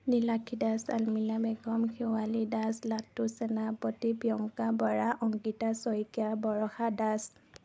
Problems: constant background noise